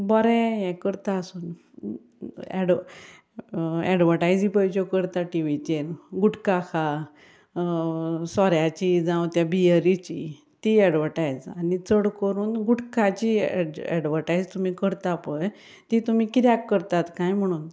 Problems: background sounds at intervals